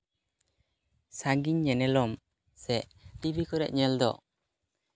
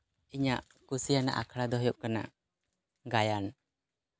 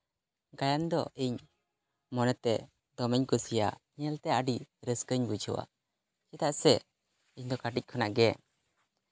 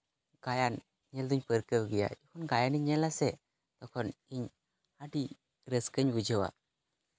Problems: none marked